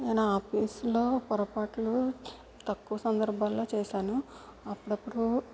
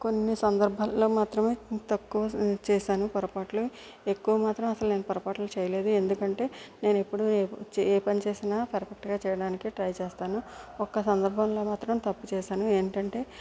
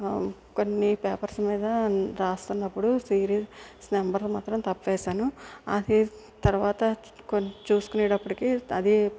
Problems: constant background noise